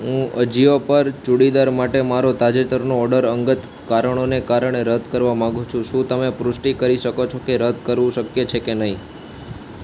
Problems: constant background noise